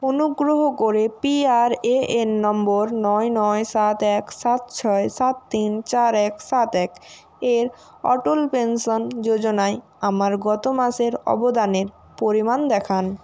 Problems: none marked